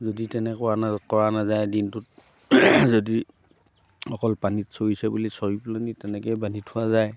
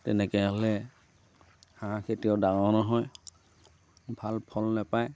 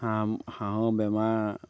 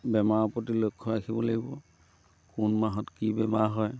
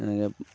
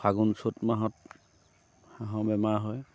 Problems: background sounds at intervals